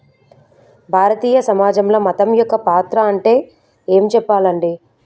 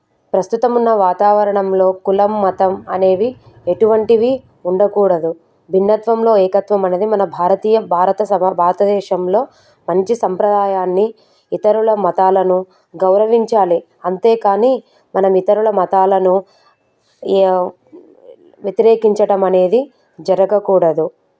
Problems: background sounds at intervals